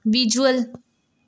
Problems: background conversations at intervals